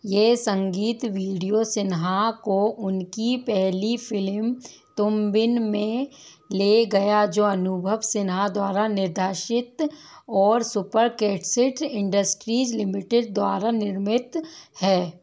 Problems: background sounds at intervals